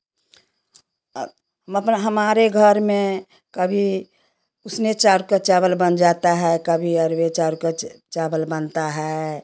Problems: none marked